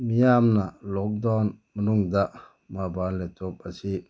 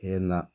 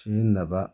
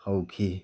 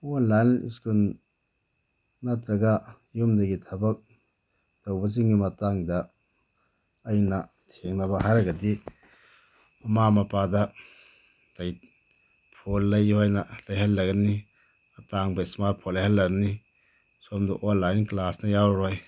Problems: constant background noise